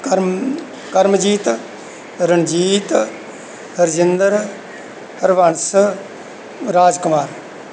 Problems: background sounds at intervals